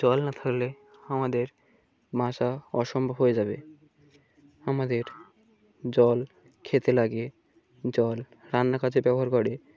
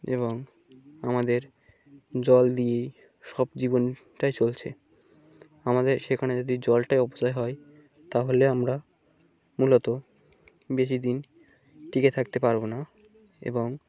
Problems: background sounds at intervals